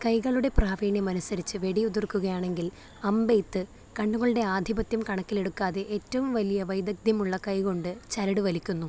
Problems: low volume